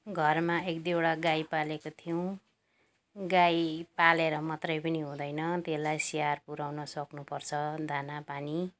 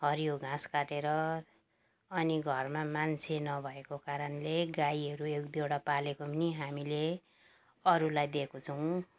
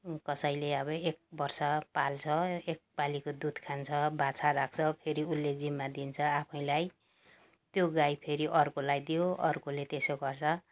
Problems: background sounds at intervals